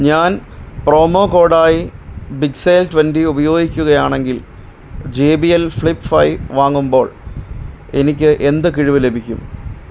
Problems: none marked